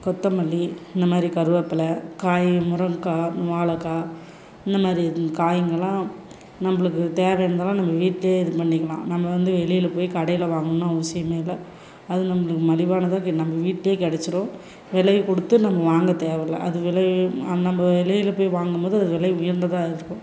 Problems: none marked